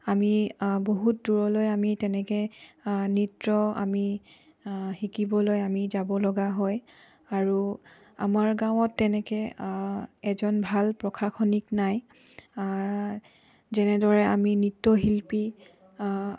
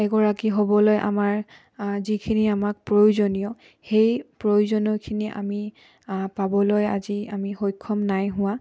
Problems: none marked